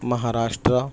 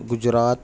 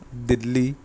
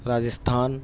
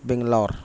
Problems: none marked